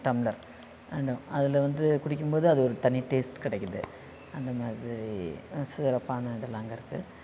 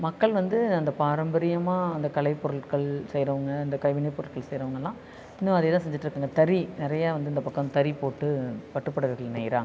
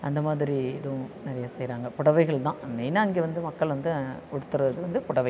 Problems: constant background noise